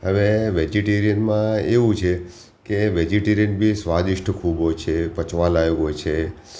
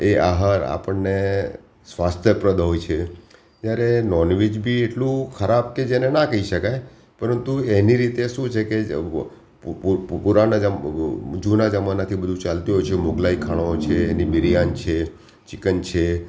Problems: none marked